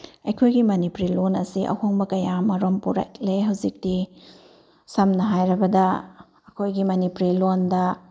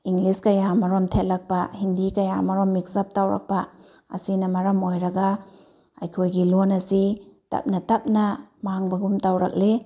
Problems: none marked